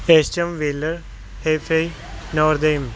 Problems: background conversations at intervals